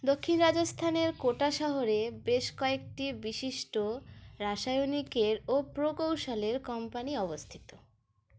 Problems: none marked